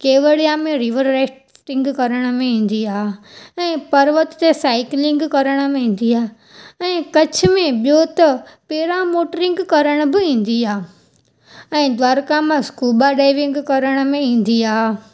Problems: none marked